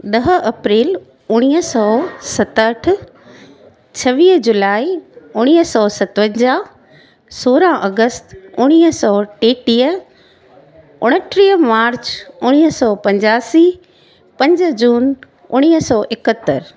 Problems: constant background noise